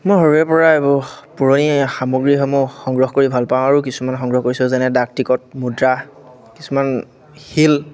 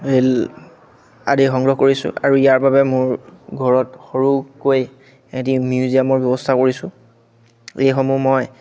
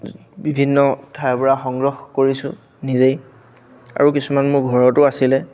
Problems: none marked